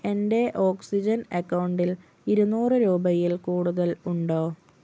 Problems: none marked